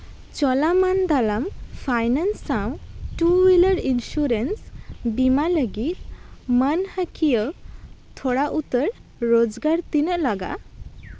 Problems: constant background noise